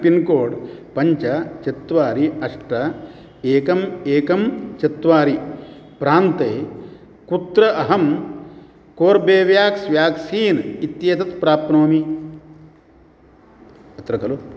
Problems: background conversations at intervals